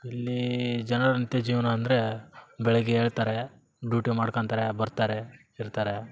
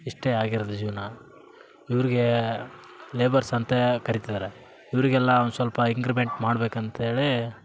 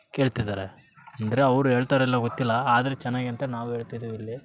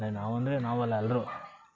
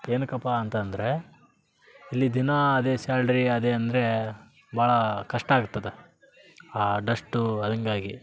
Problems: background sounds at intervals